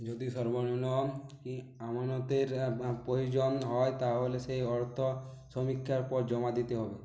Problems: low volume